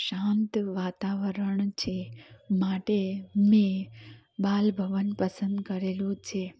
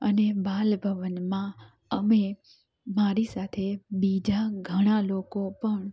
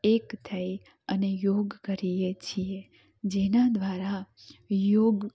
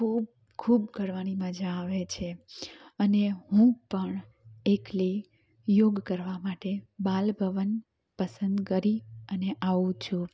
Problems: none marked